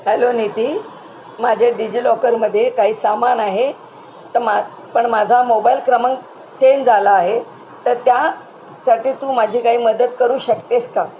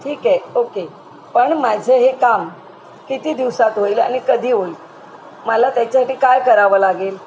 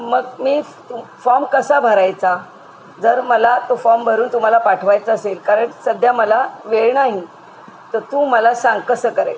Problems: constant background noise